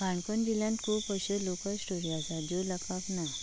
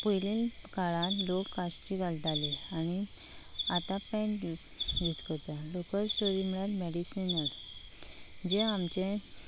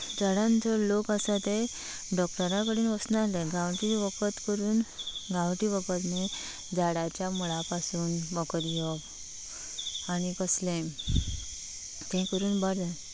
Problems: none marked